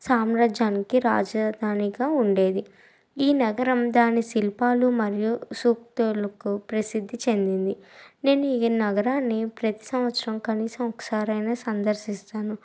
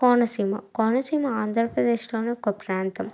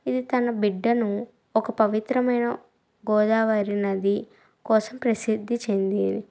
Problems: none marked